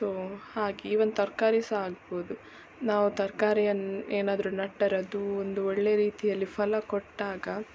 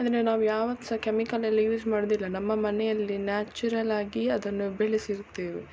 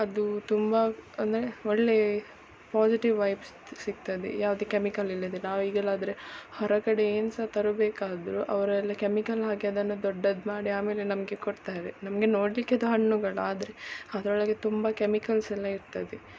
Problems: none marked